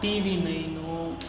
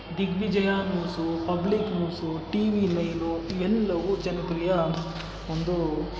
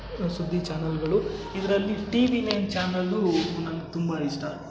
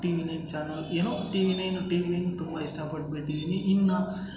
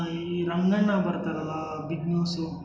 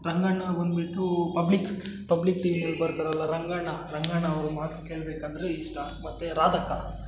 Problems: background sounds at intervals